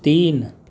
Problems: none marked